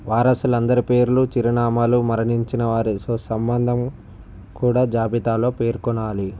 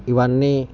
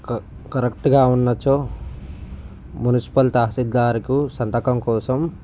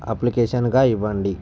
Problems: none marked